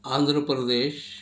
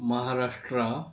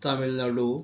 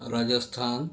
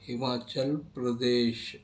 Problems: none marked